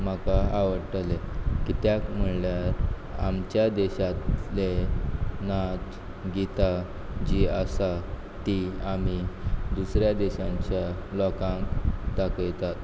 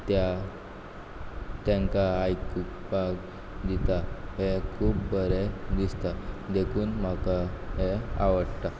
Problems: background sounds at intervals